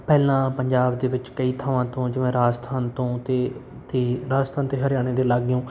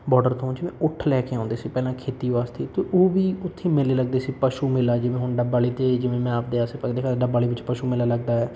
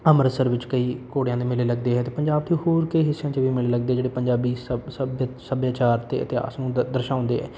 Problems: none marked